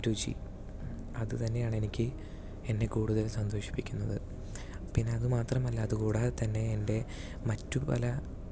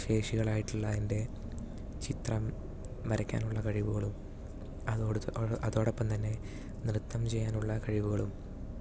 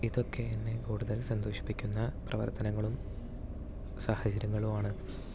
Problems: none marked